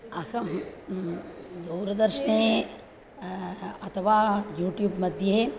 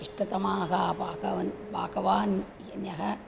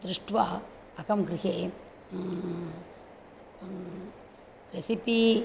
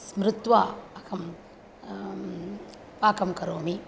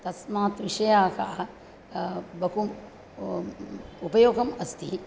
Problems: constant background noise